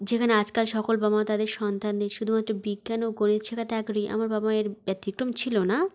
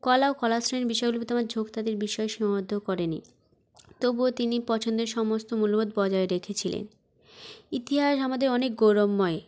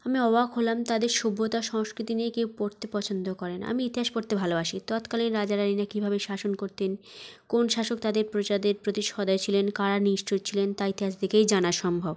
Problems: background sounds at intervals